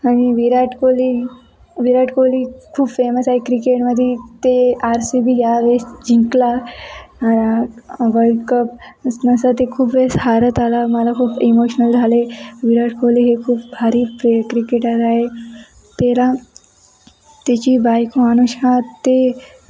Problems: none marked